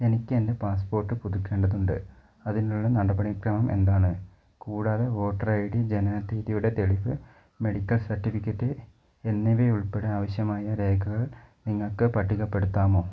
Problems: none marked